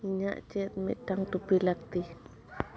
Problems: low volume